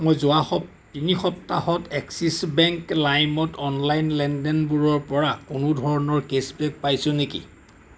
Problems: constant background noise